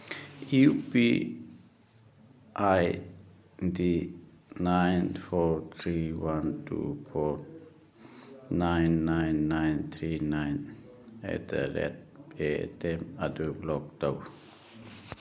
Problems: none marked